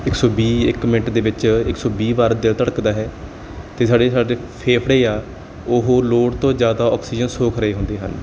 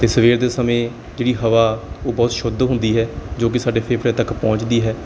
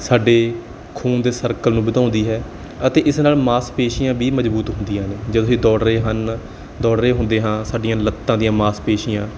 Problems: background sounds at intervals